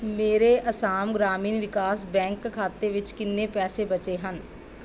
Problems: background sounds at intervals